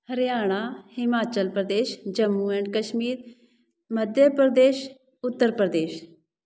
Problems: none marked